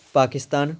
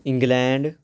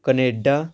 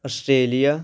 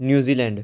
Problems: background sounds at intervals